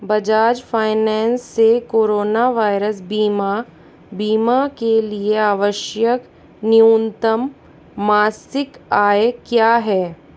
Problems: none marked